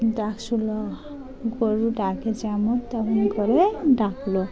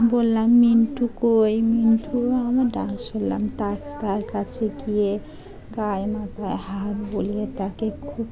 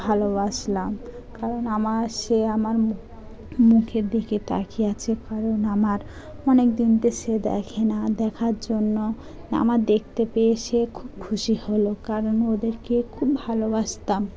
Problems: background sounds at intervals, continuous background conversations